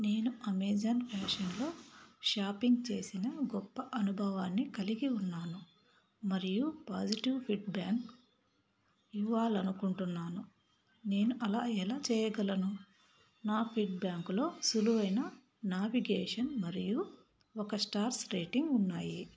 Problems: none marked